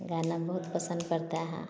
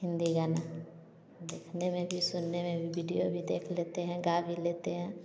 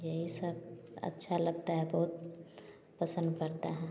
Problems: background sounds at intervals